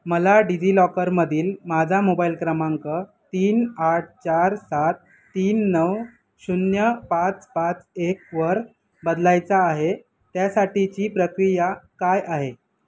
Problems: none marked